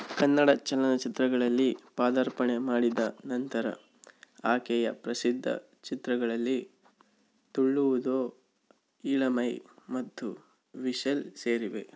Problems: none marked